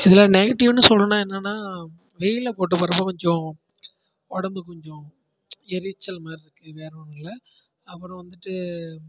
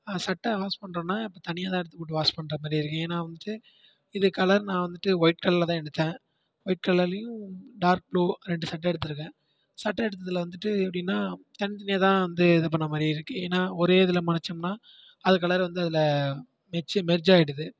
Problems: low volume